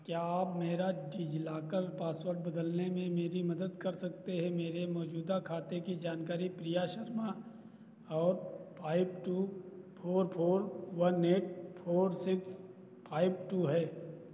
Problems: none marked